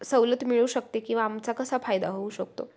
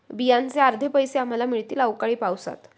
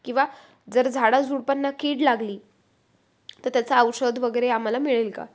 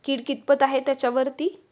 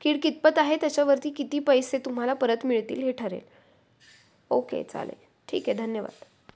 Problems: background sounds at intervals